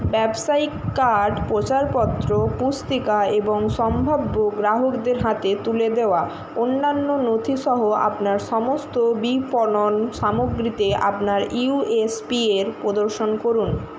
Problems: constant background noise